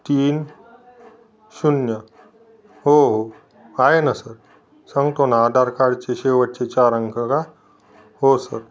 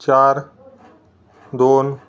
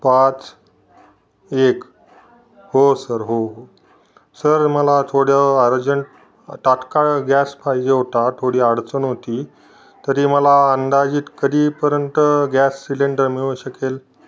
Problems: background sounds at intervals